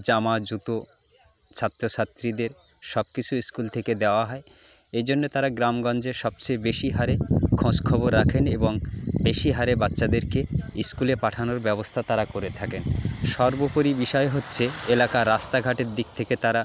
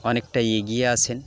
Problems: constant background noise, continuous background conversations